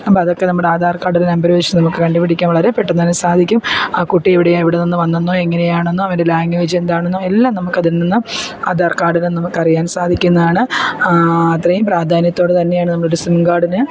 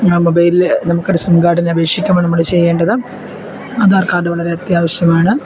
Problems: constant background noise